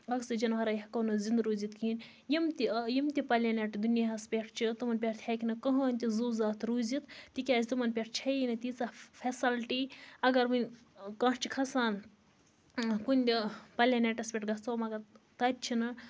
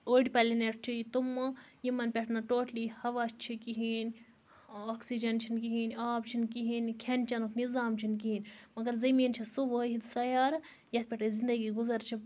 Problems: none marked